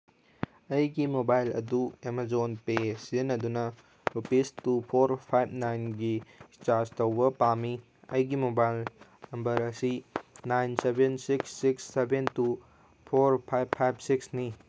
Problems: none marked